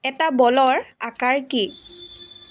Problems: background sounds at intervals